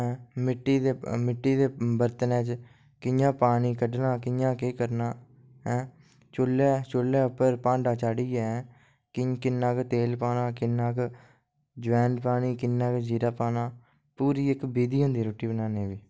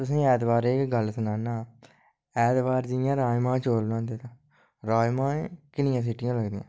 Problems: low volume